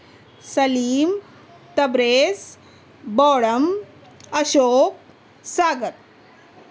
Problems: none marked